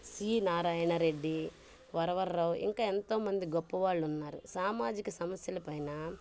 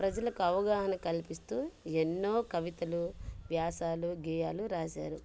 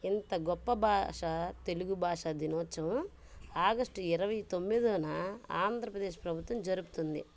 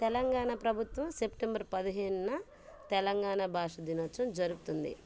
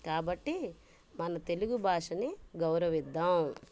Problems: background sounds at intervals